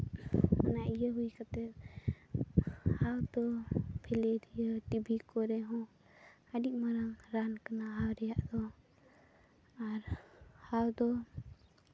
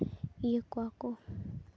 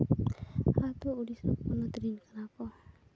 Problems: background sounds at intervals, low volume